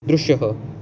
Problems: none marked